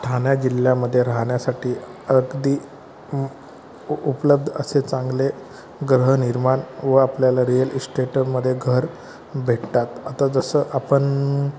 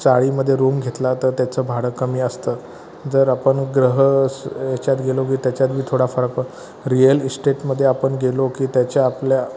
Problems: constant background noise, continuous background conversations